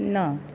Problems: constant background noise